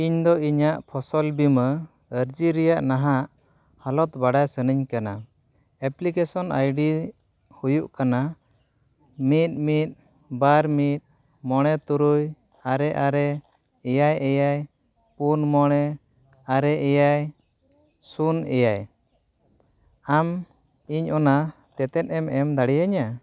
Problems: none marked